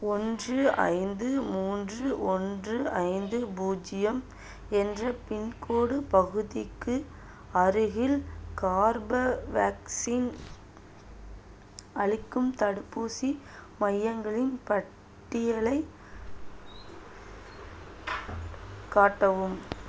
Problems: none marked